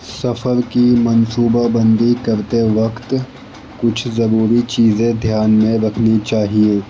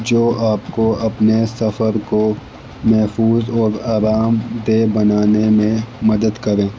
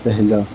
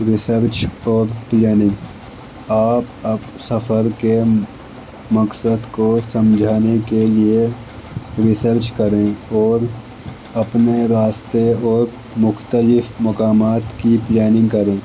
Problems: constant background noise, low volume